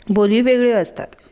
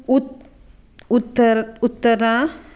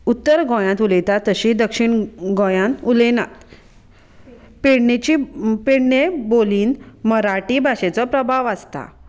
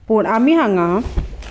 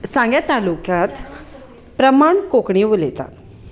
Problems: constant background noise, continuous background conversations